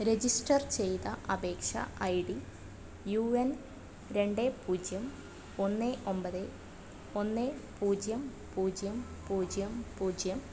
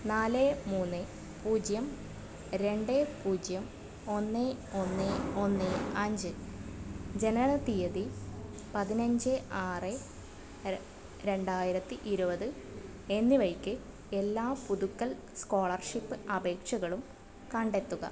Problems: background sounds at intervals